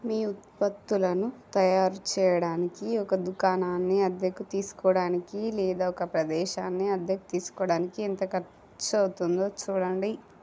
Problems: none marked